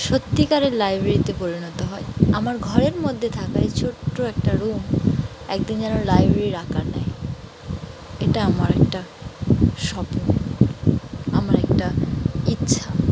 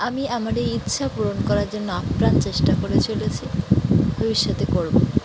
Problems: constant background noise